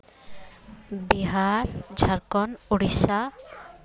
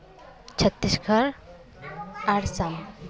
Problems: continuous background conversations